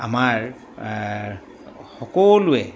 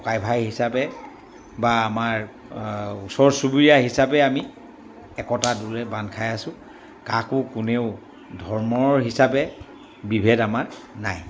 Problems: background sounds at intervals